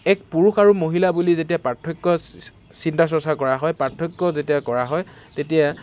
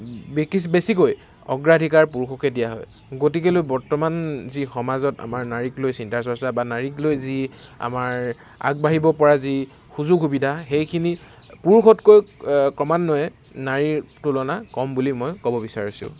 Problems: constant background noise